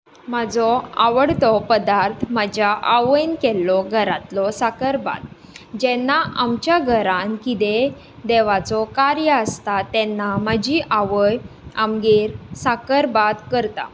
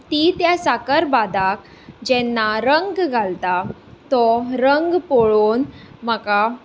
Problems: background conversations at intervals